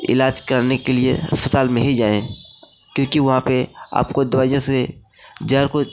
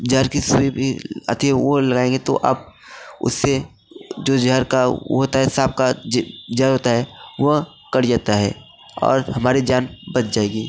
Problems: none marked